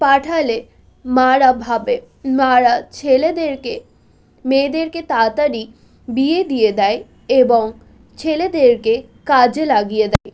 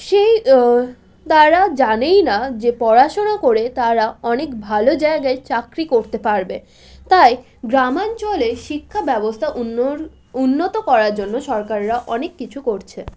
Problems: constant background noise